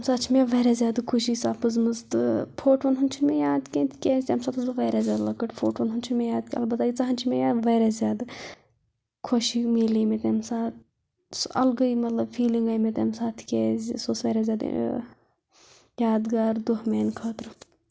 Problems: constant background noise